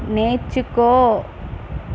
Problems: constant background noise